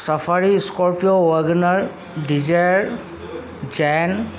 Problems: none marked